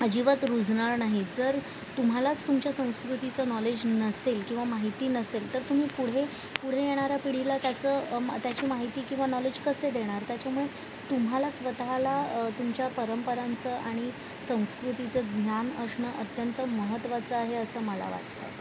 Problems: constant background noise